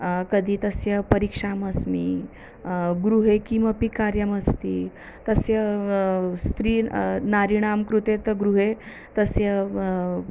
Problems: none marked